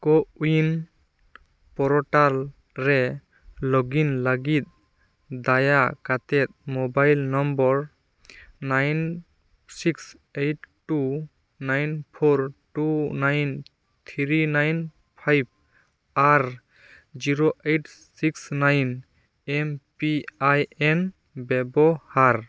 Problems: none marked